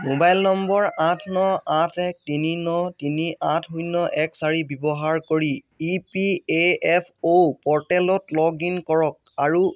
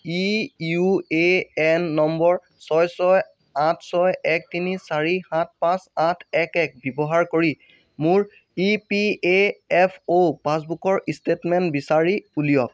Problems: background sounds at intervals